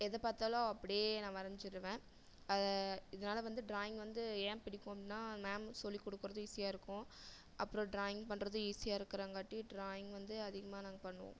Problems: low volume